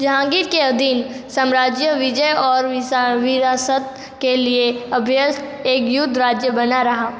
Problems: echo